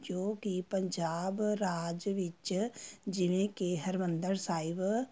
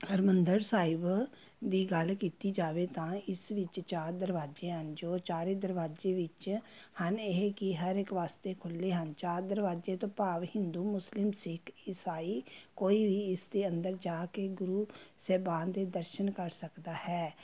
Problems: background sounds at intervals